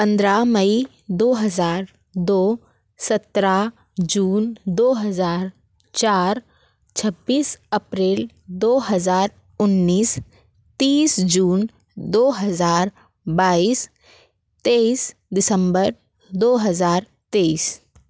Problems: none marked